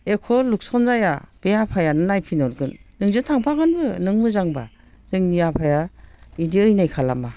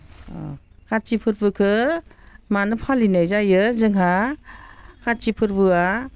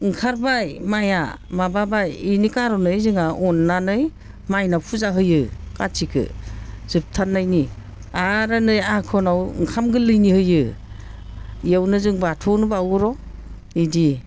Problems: constant background noise